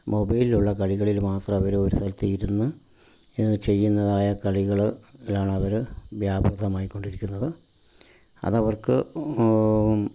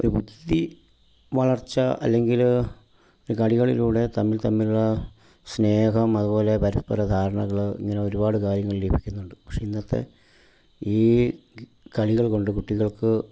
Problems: low volume